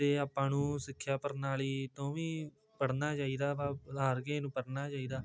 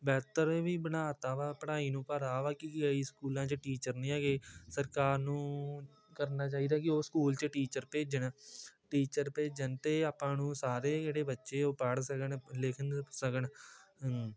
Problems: constant background noise